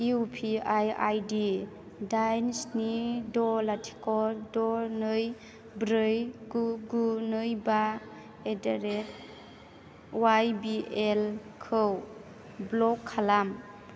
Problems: low volume